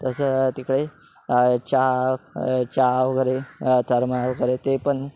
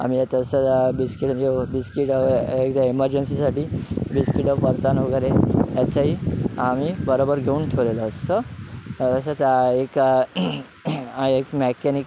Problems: background sounds at intervals